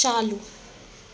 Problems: constant background noise, echo